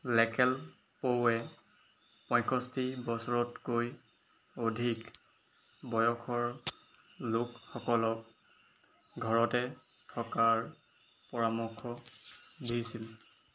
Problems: background sounds at intervals